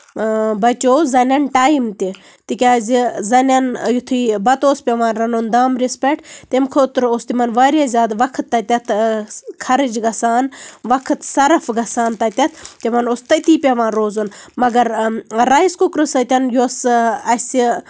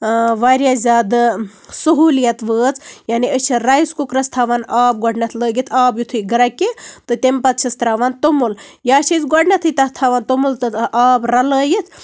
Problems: none marked